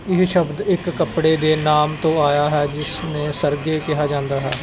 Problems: none marked